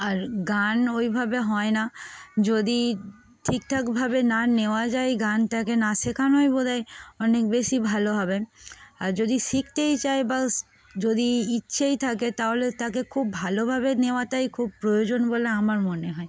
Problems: constant background noise, continuous background conversations